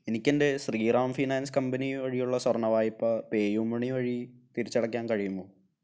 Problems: low volume